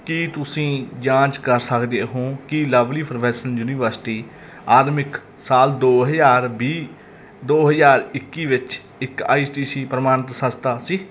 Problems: background sounds at intervals